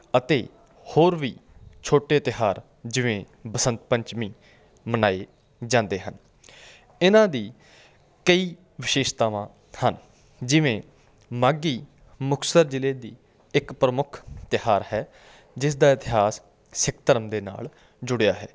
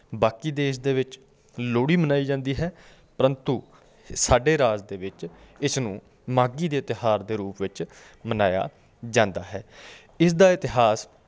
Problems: background sounds at intervals